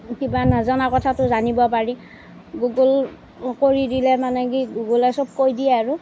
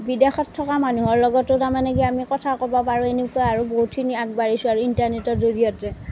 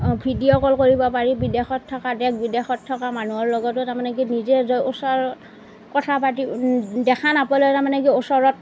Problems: background sounds at intervals